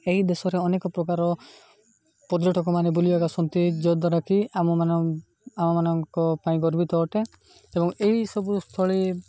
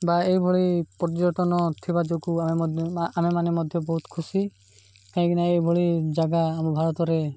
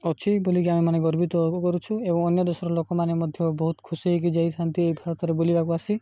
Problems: background sounds at intervals